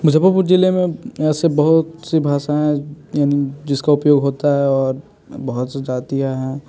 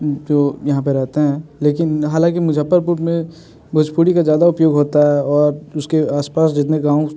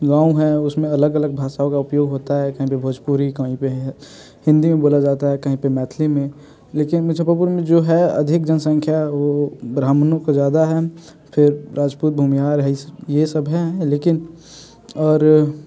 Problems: constant background noise